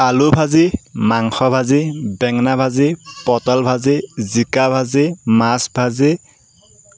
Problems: background sounds at intervals